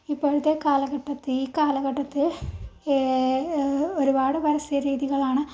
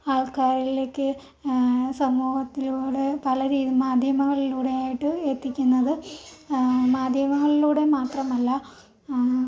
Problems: low volume